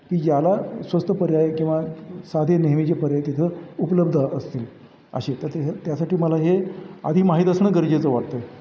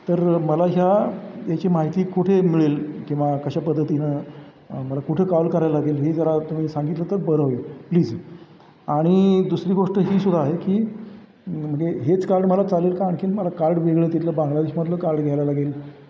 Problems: background sounds at intervals